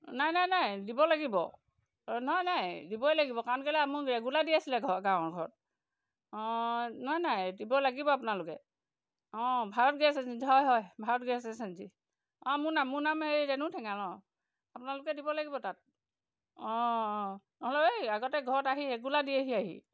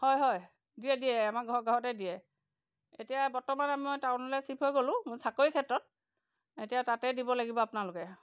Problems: none marked